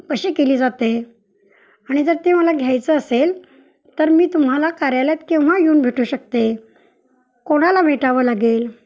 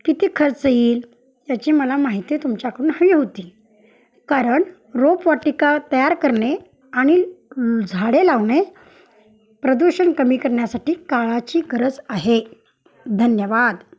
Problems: background sounds at intervals, background conversations at intervals